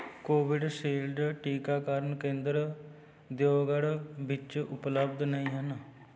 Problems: background conversations at intervals